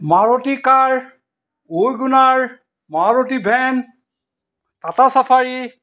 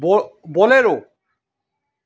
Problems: none marked